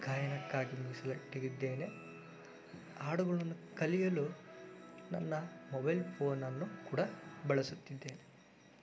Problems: constant background noise